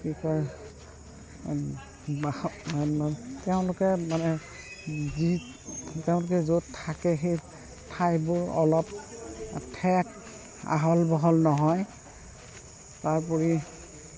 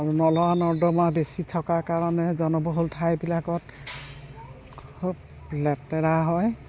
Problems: constant background noise, background conversations at intervals